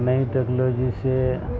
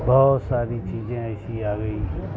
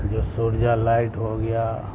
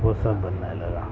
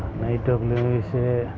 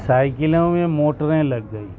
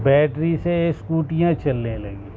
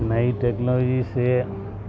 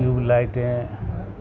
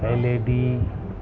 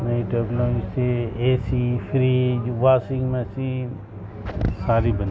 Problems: constant background noise